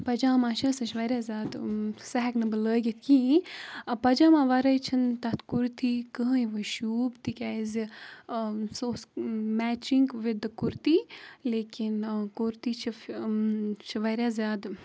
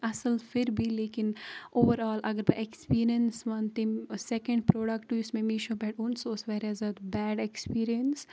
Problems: background sounds at intervals